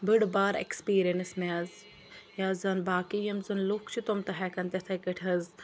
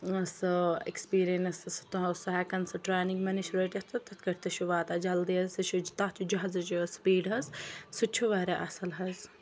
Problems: none marked